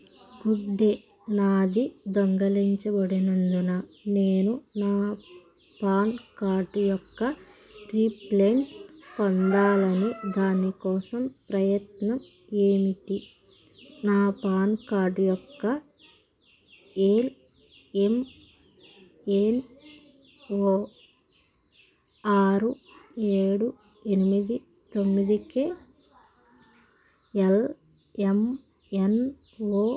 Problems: constant background noise